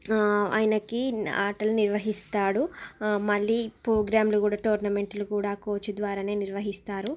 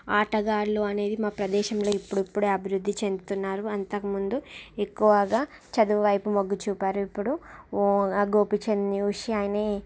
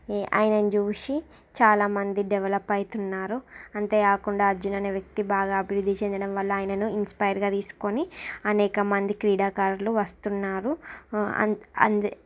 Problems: background sounds at intervals